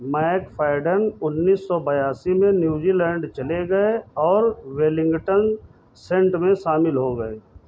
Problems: constant background noise, background conversations at intervals